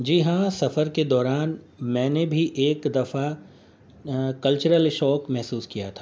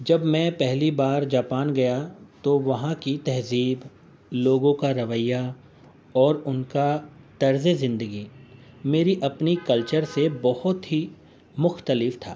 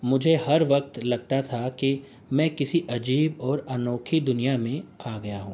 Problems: constant background noise